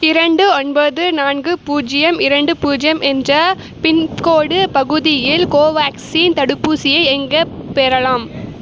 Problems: none marked